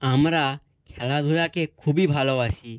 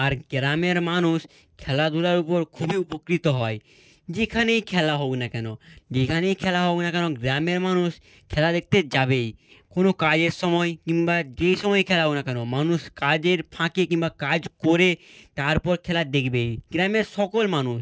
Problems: none marked